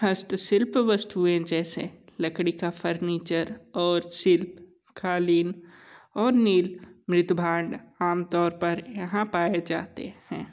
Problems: none marked